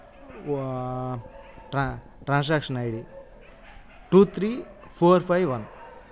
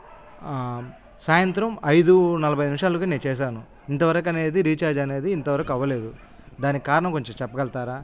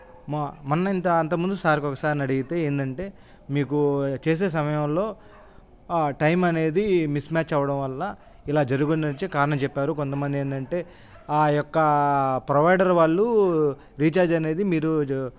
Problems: constant background noise